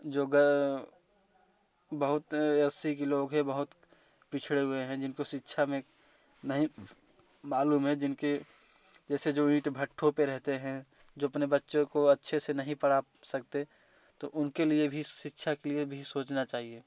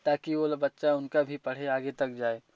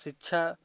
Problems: none marked